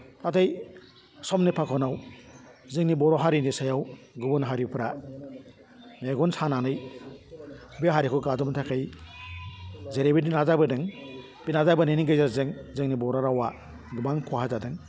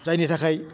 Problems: low volume